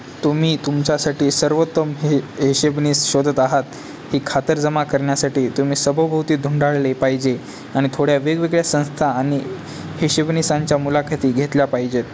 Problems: constant background noise